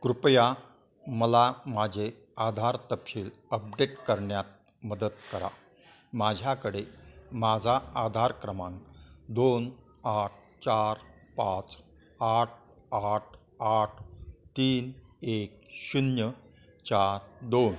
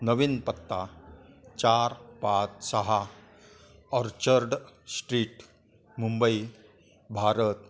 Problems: background sounds at intervals, continuous background conversations